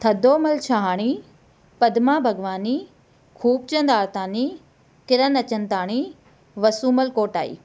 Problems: none marked